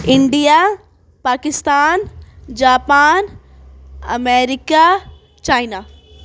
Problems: background sounds at intervals